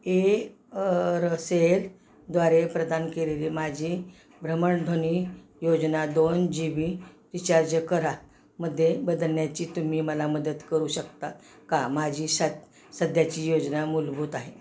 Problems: constant background noise